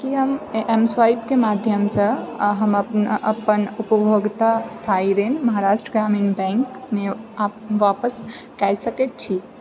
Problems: background sounds at intervals